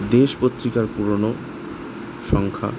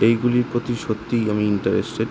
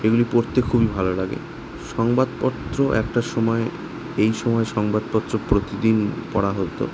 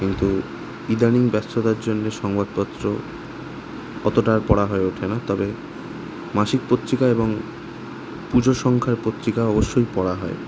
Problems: constant background noise